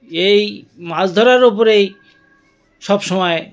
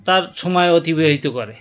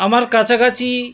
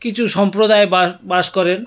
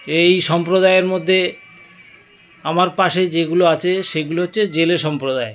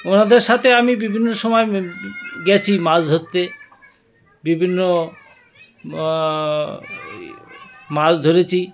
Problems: continuous background conversations